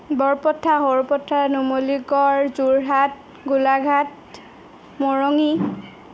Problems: none marked